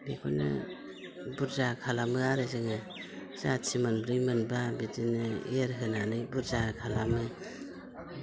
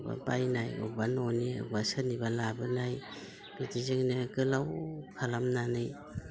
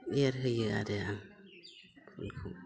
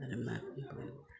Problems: constant background noise